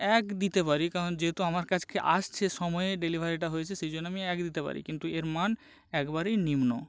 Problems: constant background noise